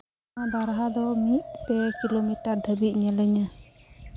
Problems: background sounds at intervals